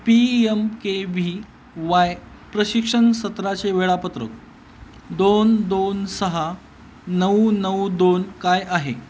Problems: none marked